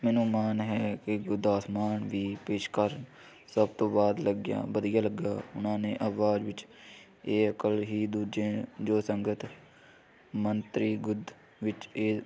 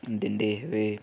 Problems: none marked